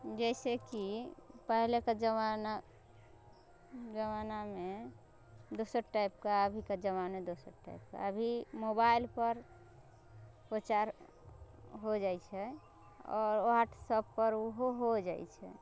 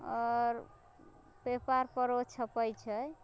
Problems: none marked